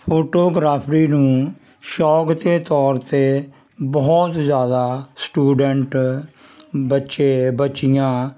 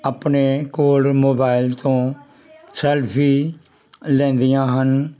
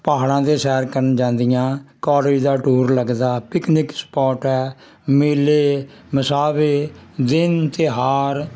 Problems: constant background noise